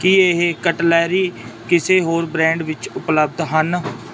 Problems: constant background noise